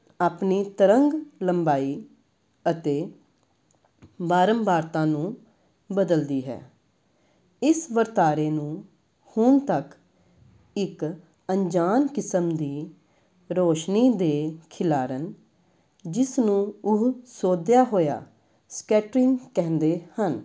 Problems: background conversations at intervals